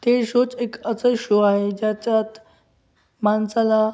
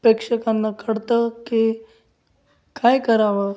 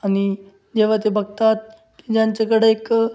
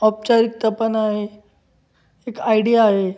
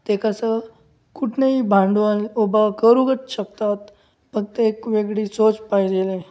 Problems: none marked